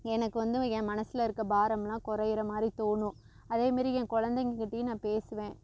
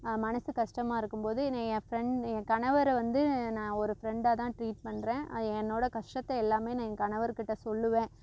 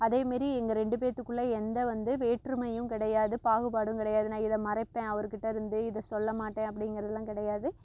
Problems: constant background noise